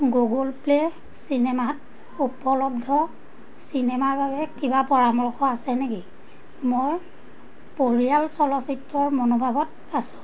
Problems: constant background noise